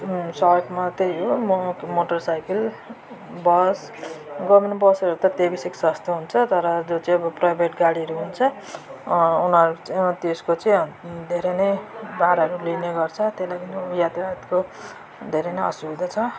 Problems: continuous background conversations